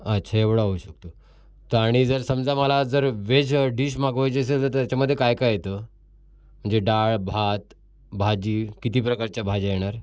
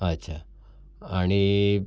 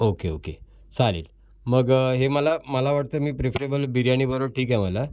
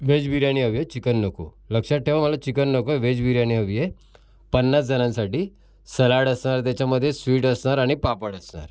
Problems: constant background noise, background conversations at intervals